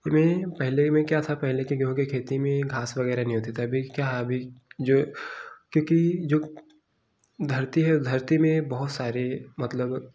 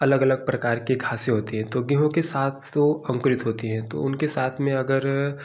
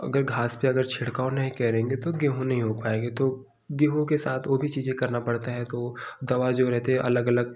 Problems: none marked